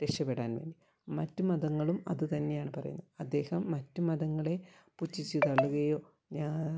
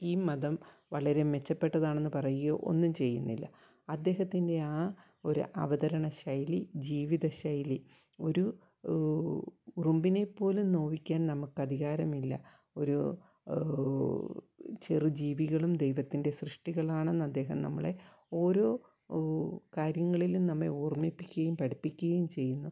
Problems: low volume